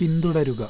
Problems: constant background noise, low volume